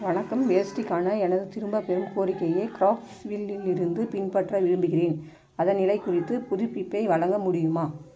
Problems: constant background noise